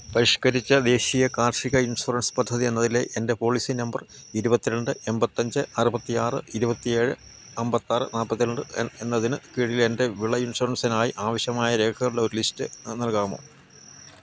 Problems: low volume